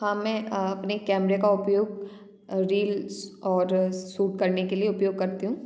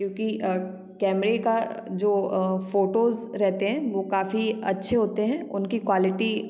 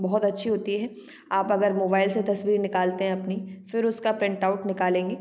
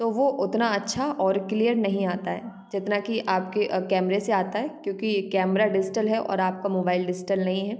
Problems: background sounds at intervals, background conversations at intervals